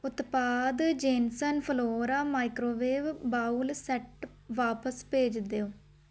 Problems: none marked